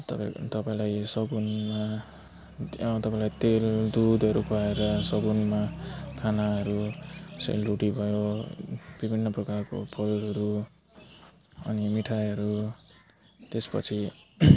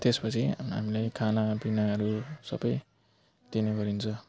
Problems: constant background noise